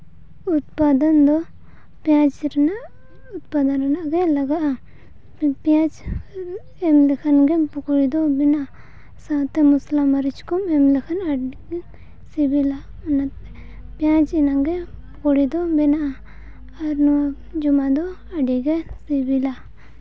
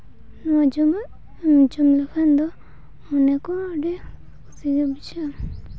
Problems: background sounds at intervals